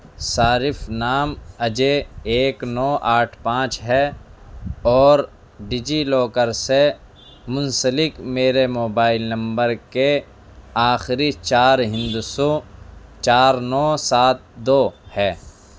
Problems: background sounds at intervals